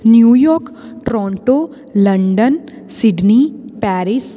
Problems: constant background noise